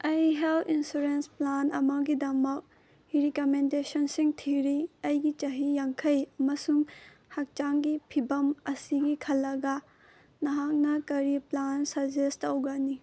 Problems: none marked